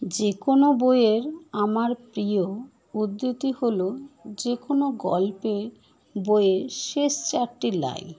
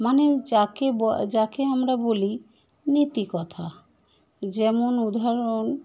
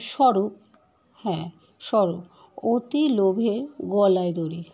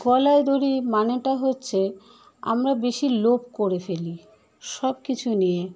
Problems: constant background noise